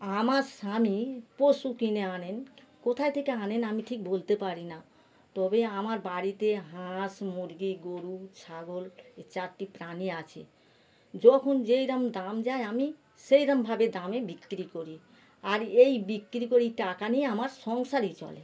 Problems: background sounds at intervals